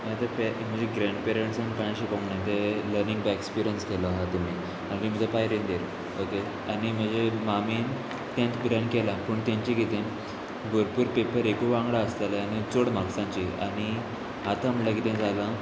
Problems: none marked